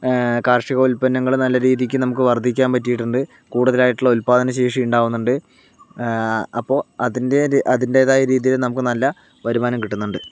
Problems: none marked